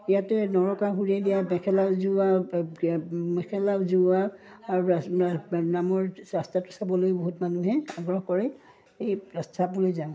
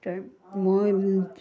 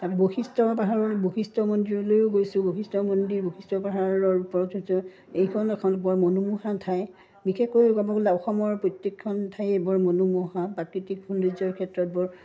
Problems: background sounds at intervals